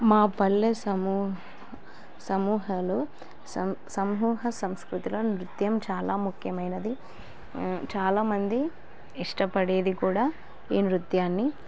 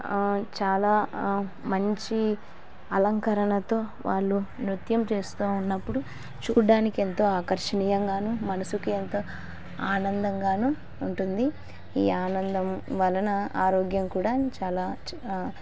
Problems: none marked